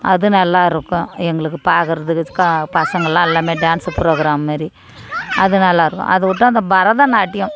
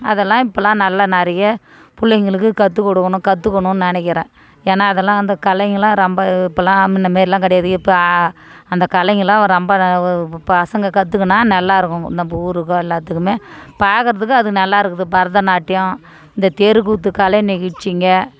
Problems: background conversations at intervals